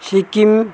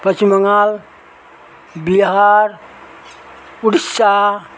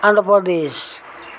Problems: constant background noise